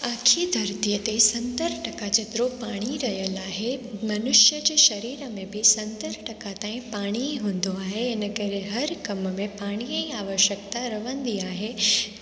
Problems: constant background noise, echo